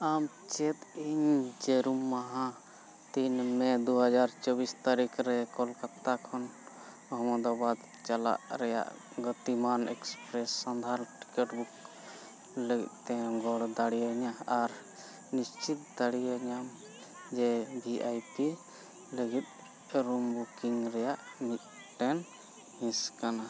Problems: continuous background conversations